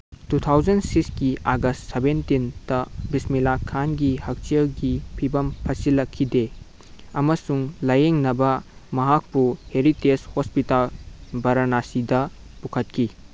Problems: none marked